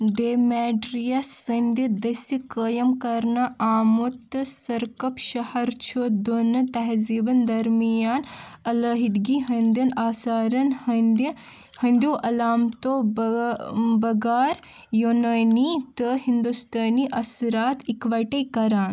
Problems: background sounds at intervals